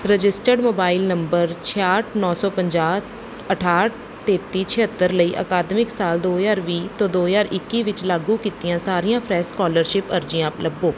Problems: background sounds at intervals